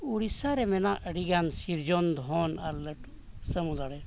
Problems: constant background noise